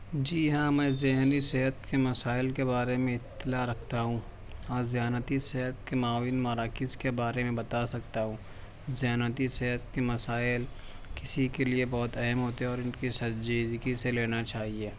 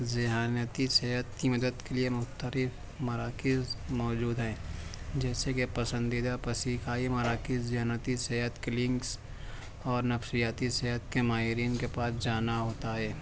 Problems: background sounds at intervals